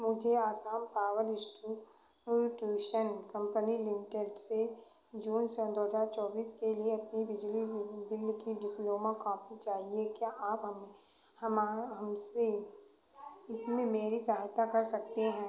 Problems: constant background noise, echo